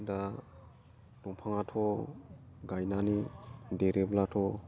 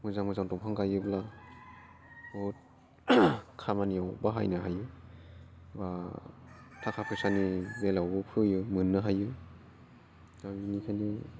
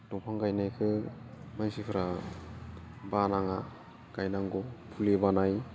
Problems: none marked